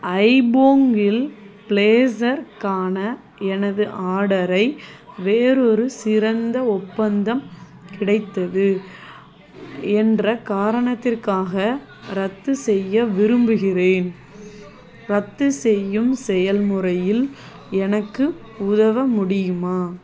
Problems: none marked